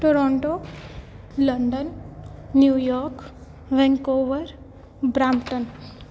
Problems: background sounds at intervals